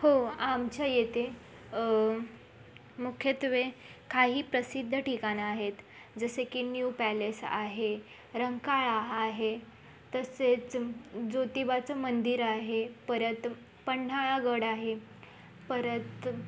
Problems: constant background noise, background conversations at intervals